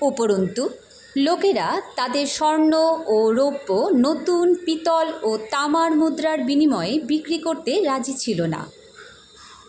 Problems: constant background noise